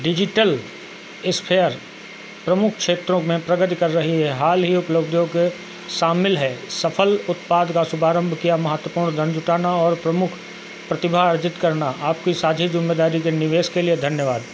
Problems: constant background noise